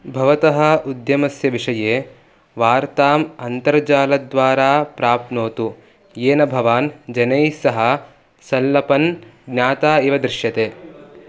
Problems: background conversations at intervals